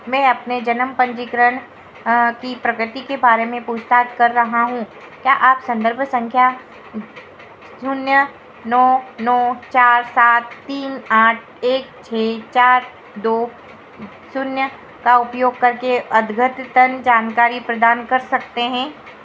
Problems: constant background noise